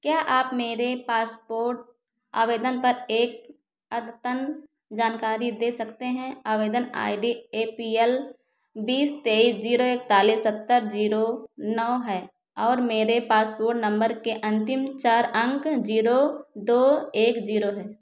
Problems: echo